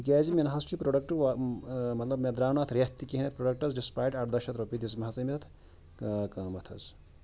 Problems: none marked